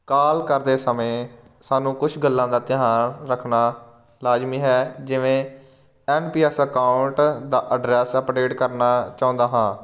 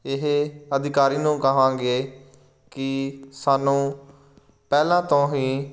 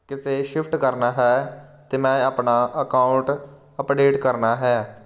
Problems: none marked